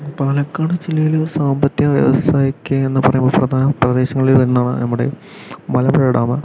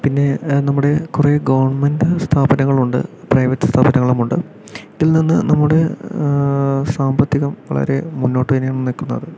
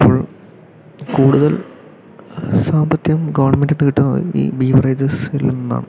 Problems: background sounds at intervals